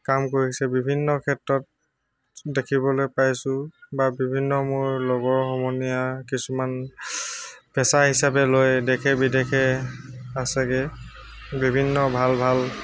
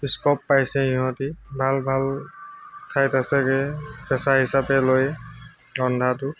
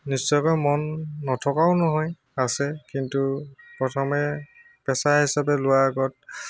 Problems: constant background noise, background conversations at intervals